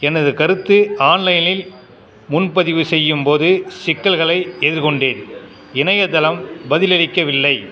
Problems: background conversations at intervals